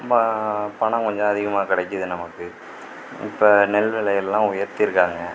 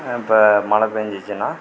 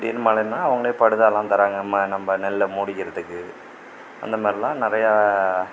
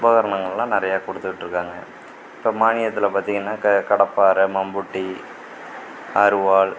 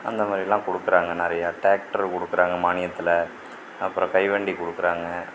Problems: constant background noise